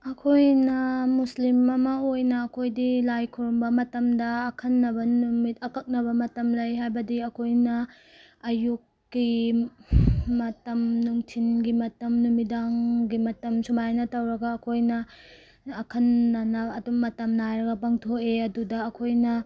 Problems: none marked